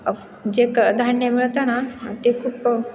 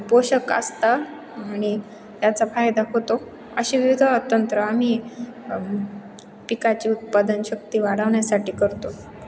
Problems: none marked